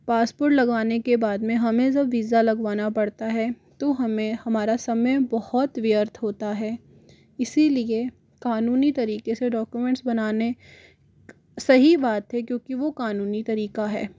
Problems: background sounds at intervals, background conversations at intervals